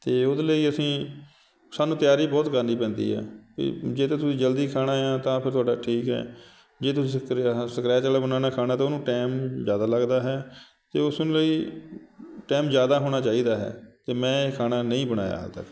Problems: background sounds at intervals